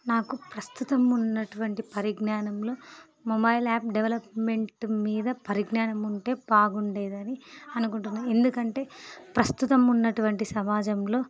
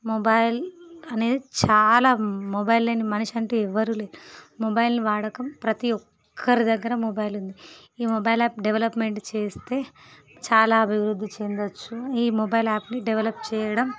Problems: background sounds at intervals